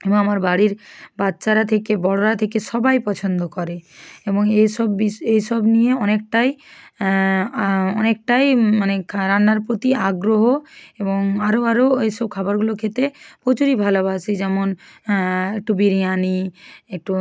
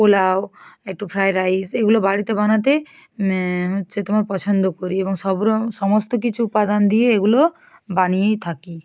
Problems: none marked